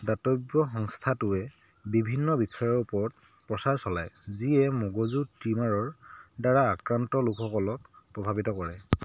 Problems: background sounds at intervals